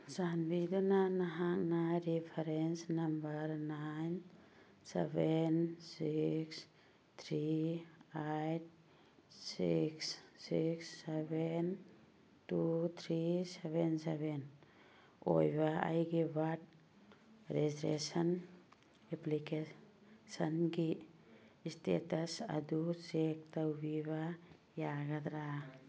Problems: background conversations at intervals